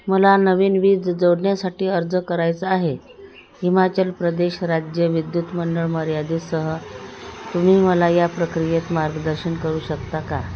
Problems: constant background noise